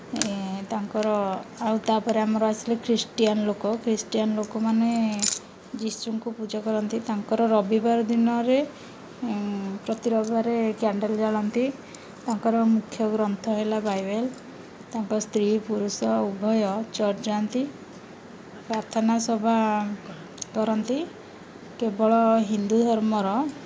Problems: none marked